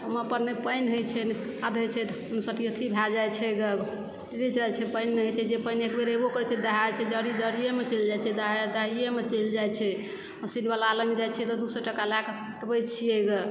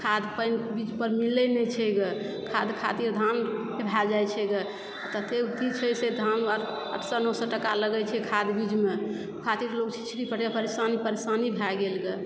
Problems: background sounds at intervals, background conversations at intervals